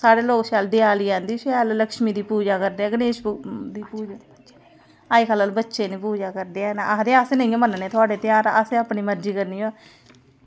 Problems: none marked